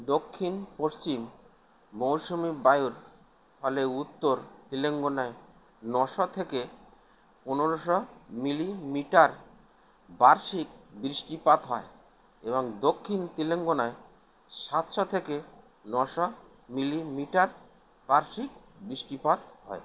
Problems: constant background noise